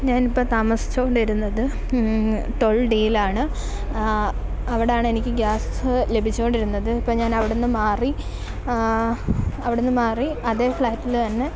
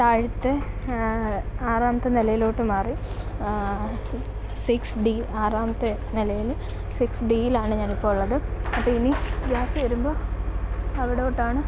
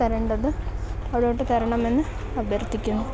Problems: constant background noise